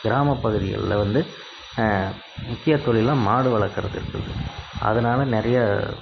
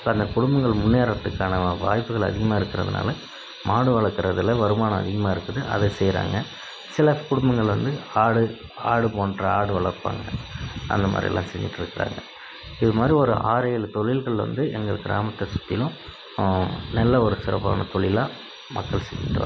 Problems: constant background noise